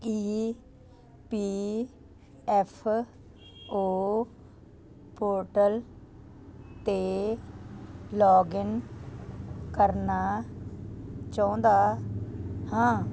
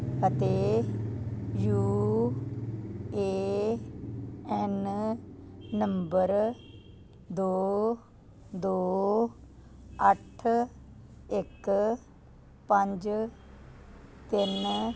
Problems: constant background noise